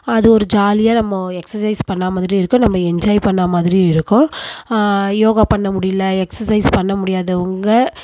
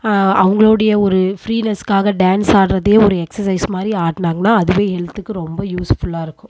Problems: constant background noise